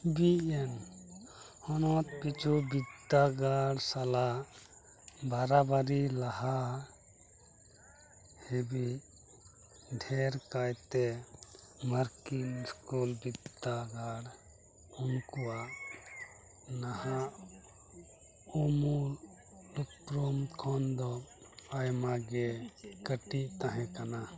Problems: background sounds at intervals, continuous background conversations, low volume